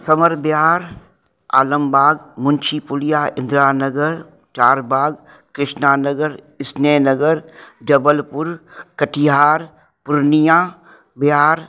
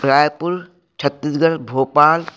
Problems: background sounds at intervals, echo